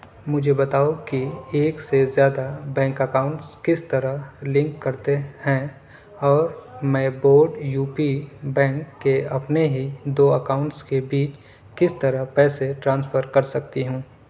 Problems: background sounds at intervals, background conversations at intervals